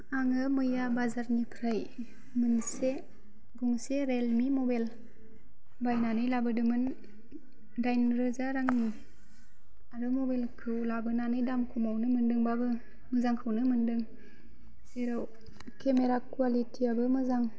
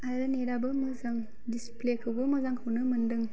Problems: none marked